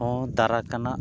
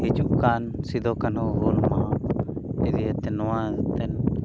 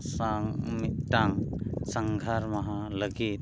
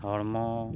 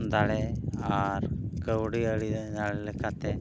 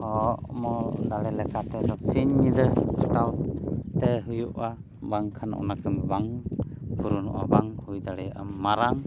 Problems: constant background noise